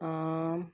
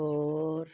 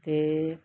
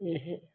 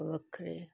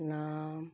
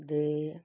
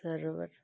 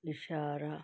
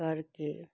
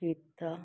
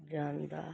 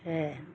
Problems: none marked